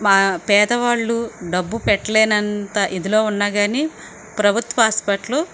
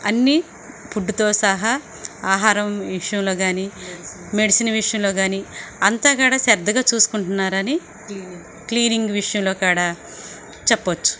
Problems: constant background noise